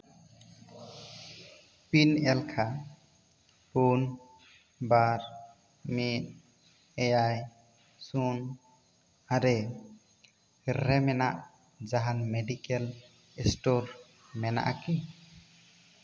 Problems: echo